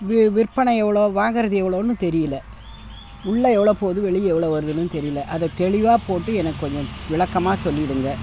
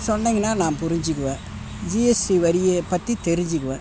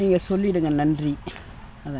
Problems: background sounds at intervals